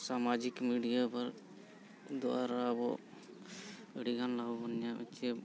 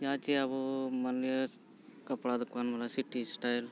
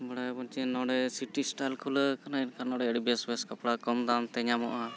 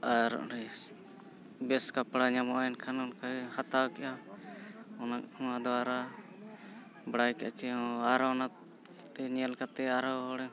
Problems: constant background noise